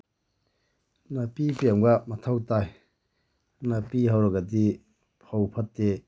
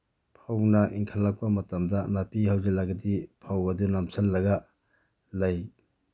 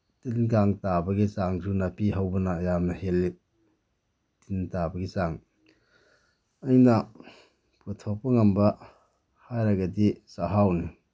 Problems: background sounds at intervals